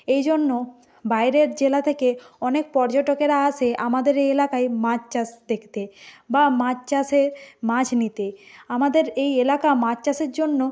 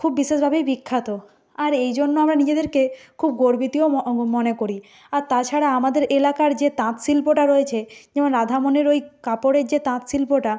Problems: background sounds at intervals